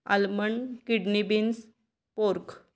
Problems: none marked